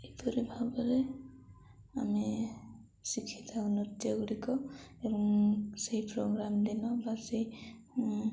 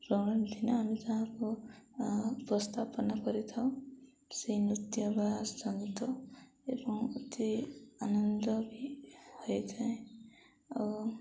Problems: none marked